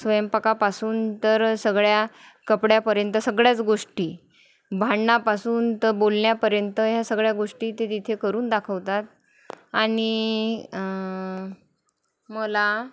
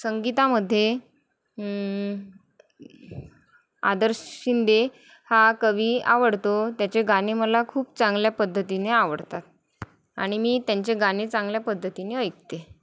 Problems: none marked